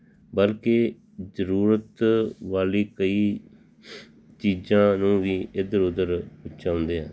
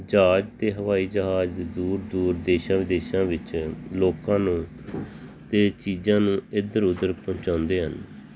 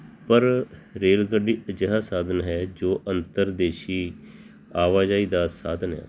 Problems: background sounds at intervals